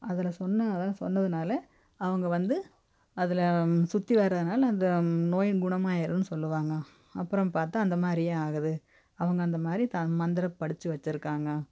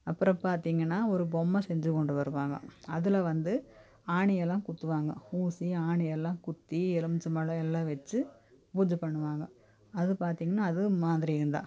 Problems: none marked